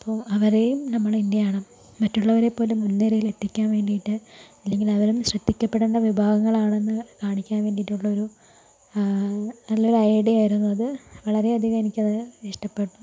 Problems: constant background noise, low volume